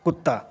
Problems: none marked